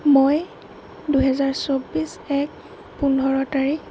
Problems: constant background noise